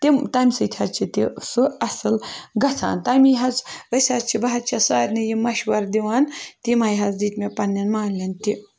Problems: none marked